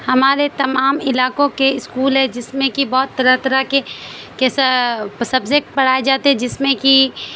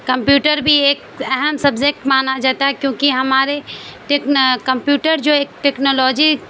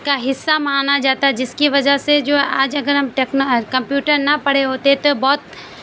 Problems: constant background noise